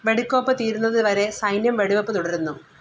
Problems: none marked